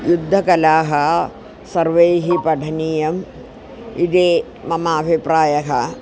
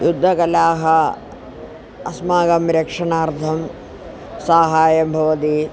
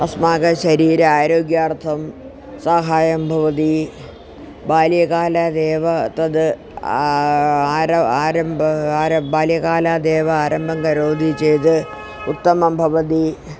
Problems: constant background noise